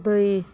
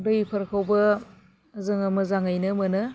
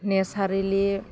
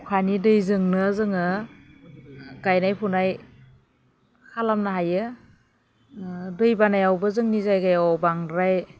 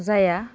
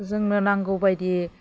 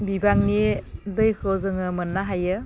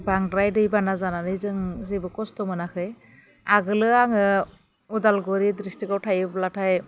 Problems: none marked